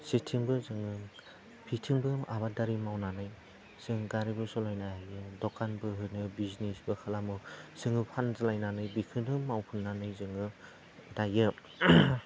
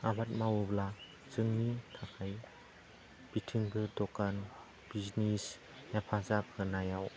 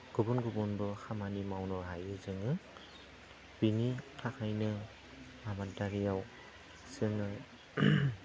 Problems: low volume